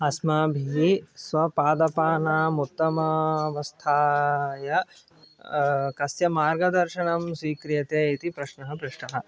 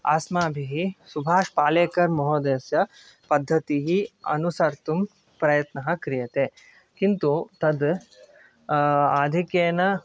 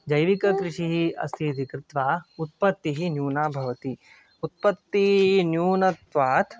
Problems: background sounds at intervals, background conversations at intervals